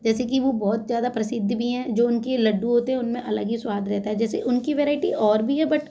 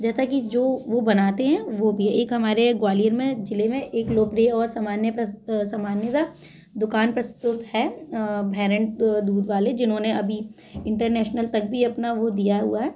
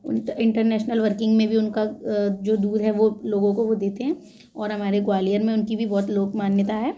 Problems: background sounds at intervals, background conversations at intervals